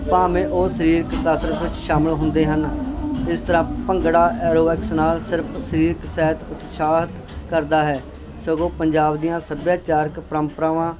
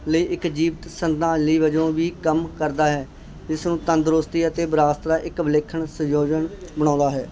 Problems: constant background noise